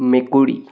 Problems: background sounds at intervals